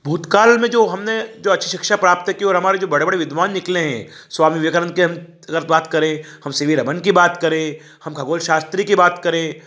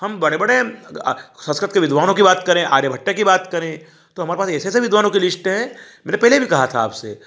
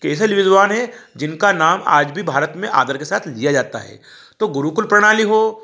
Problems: none marked